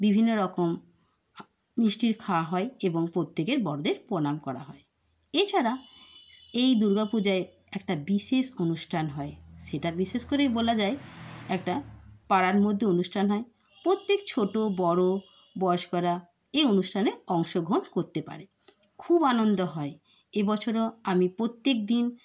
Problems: constant background noise